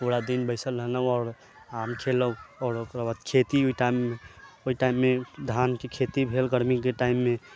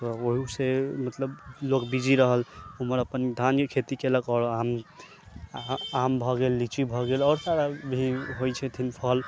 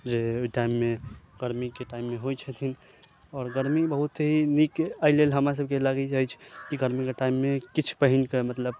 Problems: constant background noise